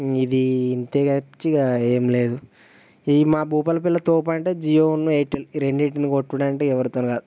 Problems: none marked